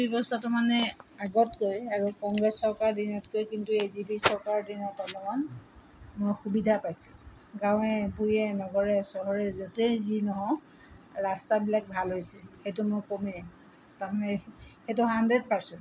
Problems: constant background noise